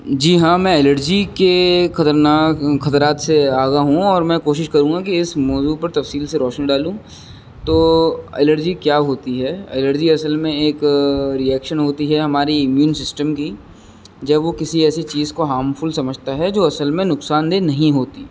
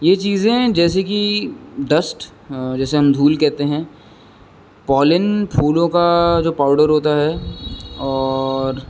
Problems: constant background noise